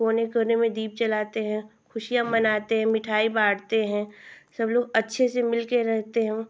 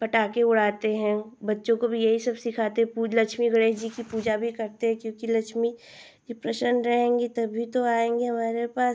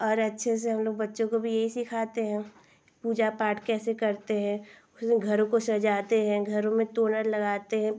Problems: constant background noise